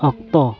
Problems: continuous background conversations